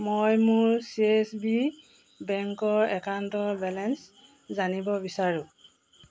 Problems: constant background noise